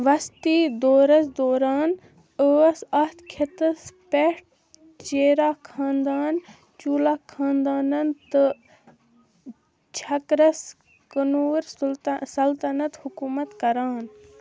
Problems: low volume